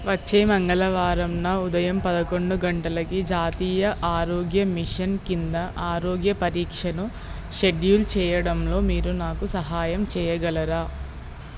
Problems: constant background noise